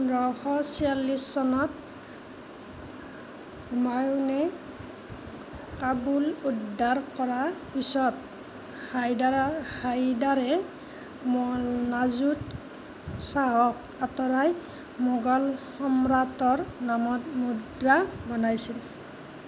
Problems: constant background noise